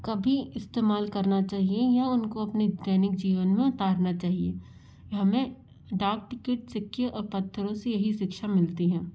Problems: constant background noise